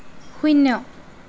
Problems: none marked